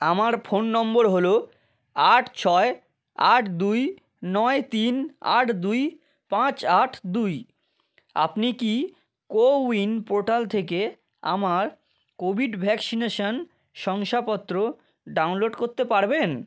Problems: constant background noise